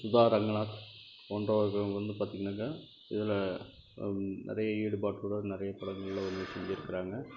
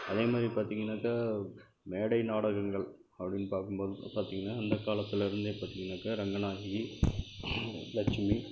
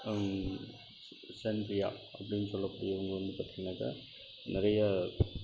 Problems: constant background noise